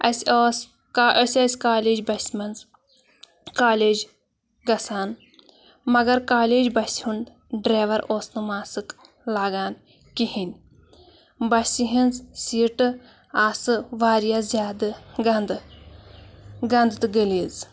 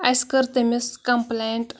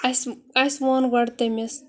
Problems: constant background noise